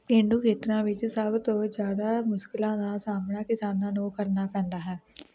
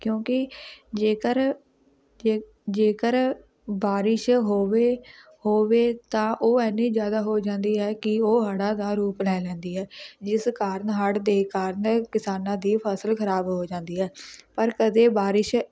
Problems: constant background noise, background conversations at intervals